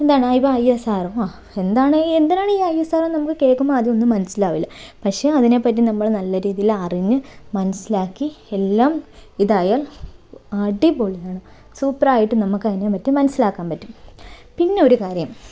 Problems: none marked